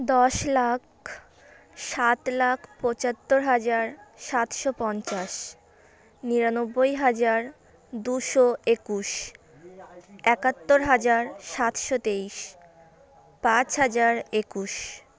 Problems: constant background noise